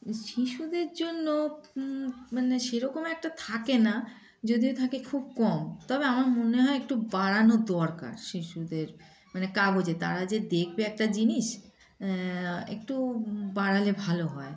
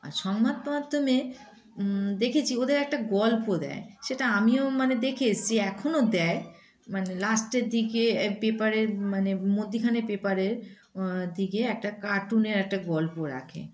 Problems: constant background noise